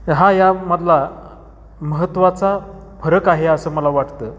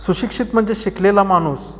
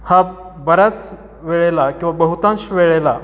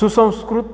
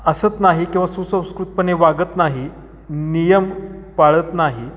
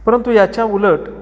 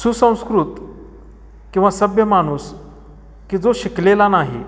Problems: background sounds at intervals, echo